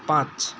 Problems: constant background noise